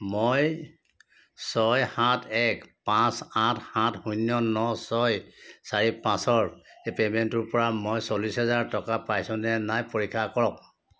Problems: background sounds at intervals